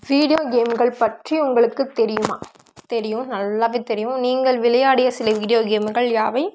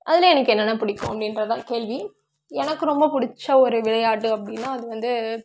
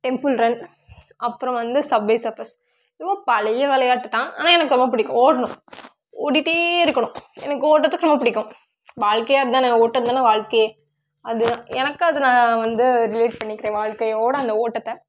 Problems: none marked